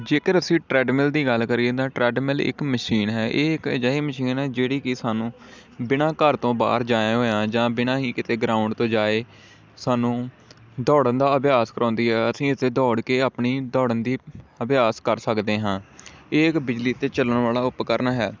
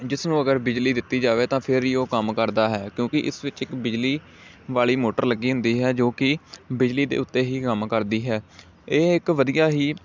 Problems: none marked